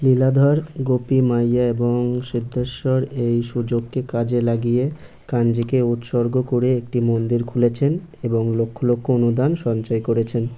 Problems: none marked